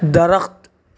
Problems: none marked